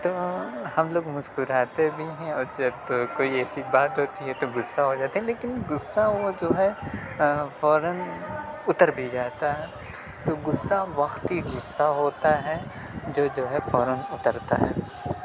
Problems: background sounds at intervals, continuous background conversations